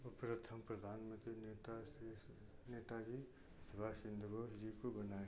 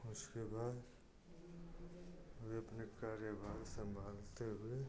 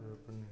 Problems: constant background noise